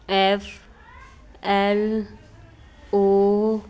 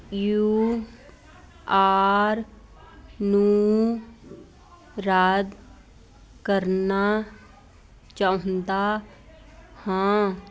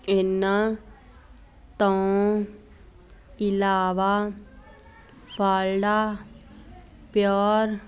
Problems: constant background noise